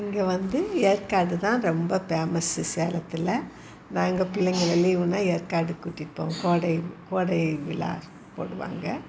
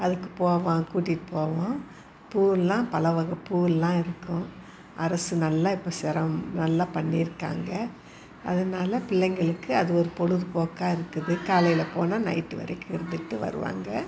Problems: constant background noise, background conversations at intervals